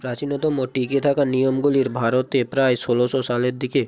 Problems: none marked